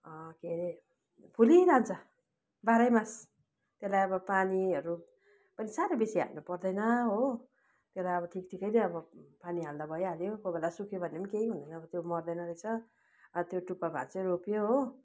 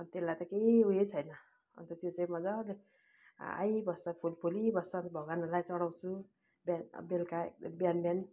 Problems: none marked